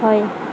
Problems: constant background noise